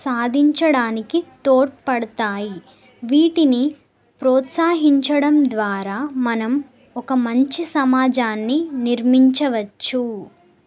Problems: none marked